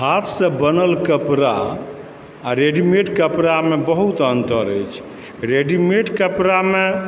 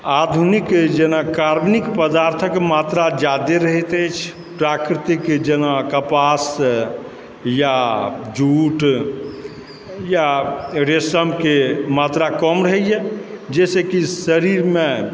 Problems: background sounds at intervals, background conversations at intervals